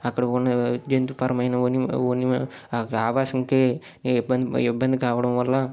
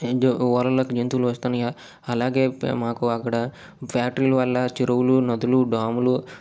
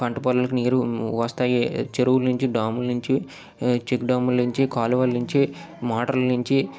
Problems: background sounds at intervals